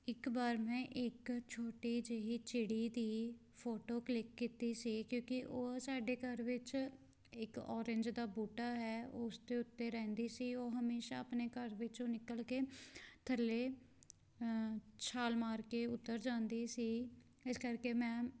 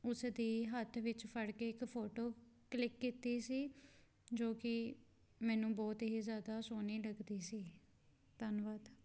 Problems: background sounds at intervals